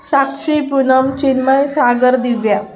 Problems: continuous background conversations